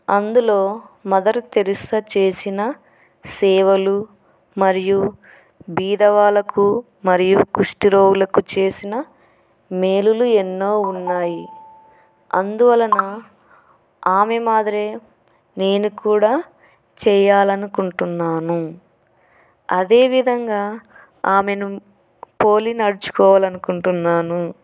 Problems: none marked